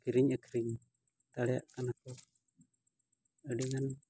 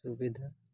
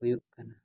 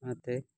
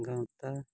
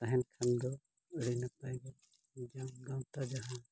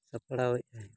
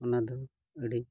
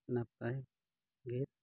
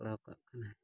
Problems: background sounds at intervals, low volume